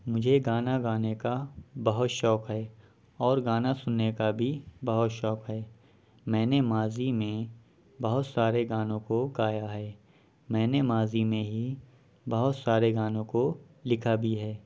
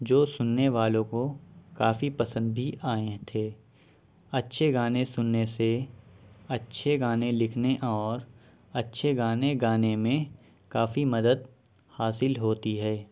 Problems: none marked